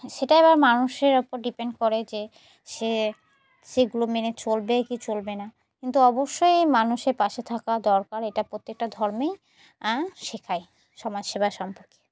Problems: constant background noise